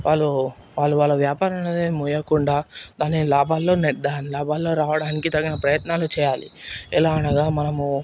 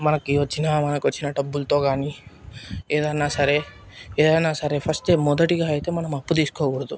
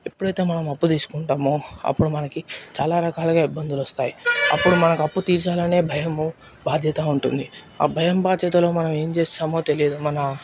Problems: none marked